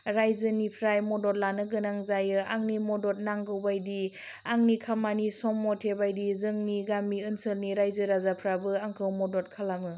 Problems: low volume